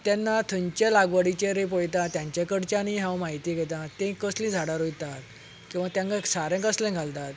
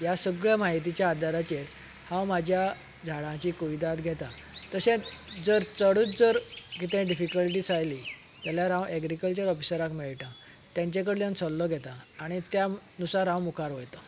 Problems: background sounds at intervals